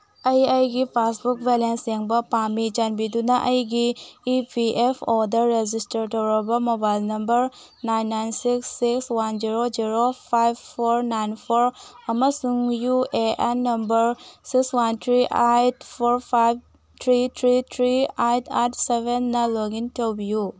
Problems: background sounds at intervals